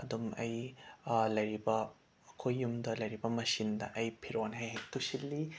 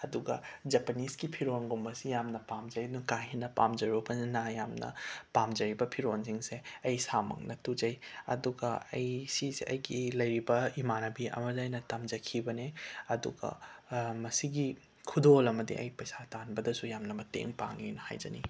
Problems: background sounds at intervals